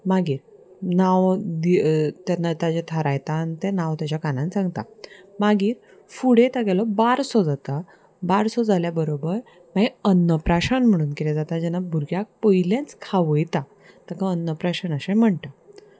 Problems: constant background noise, background conversations at intervals